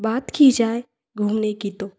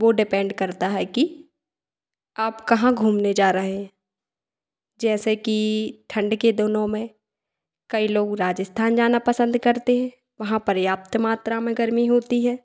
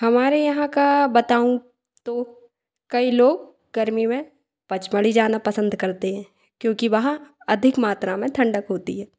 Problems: echo